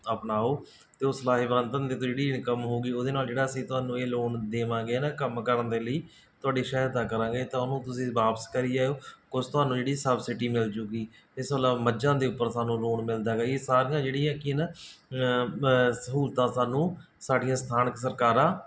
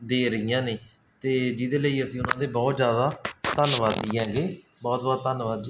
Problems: background sounds at intervals